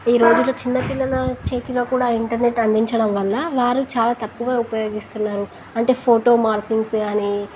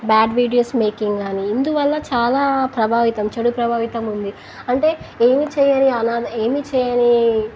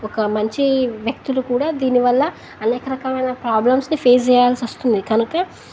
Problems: constant background noise